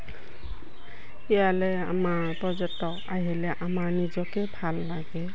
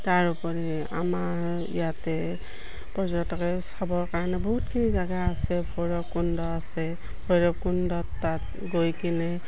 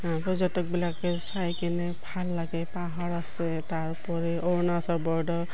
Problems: constant background noise